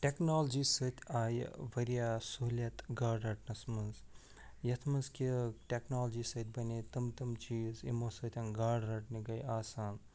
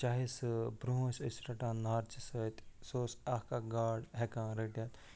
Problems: none marked